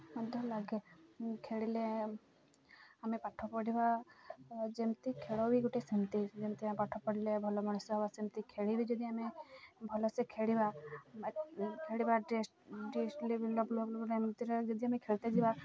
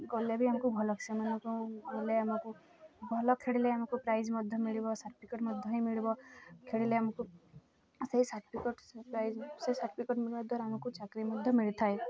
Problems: none marked